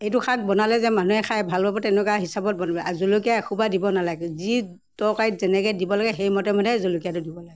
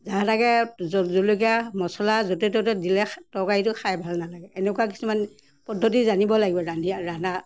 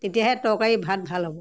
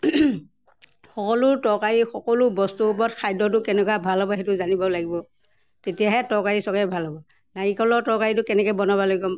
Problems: none marked